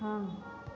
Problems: none marked